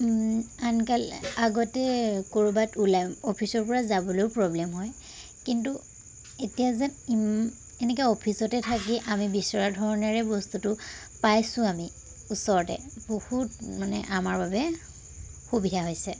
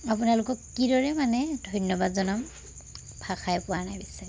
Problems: constant background noise